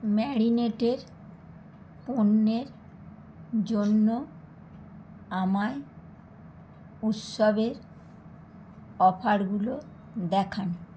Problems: none marked